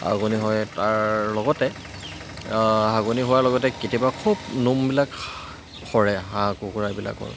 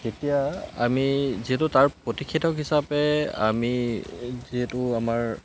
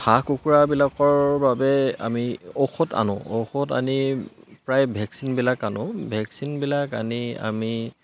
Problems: constant background noise